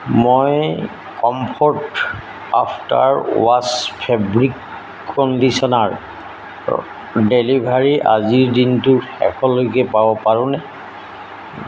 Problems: constant background noise